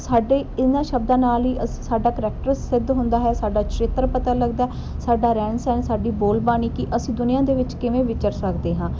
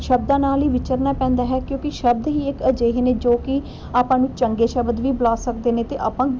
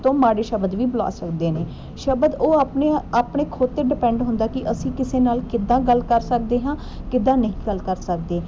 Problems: none marked